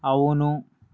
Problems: none marked